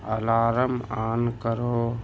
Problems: none marked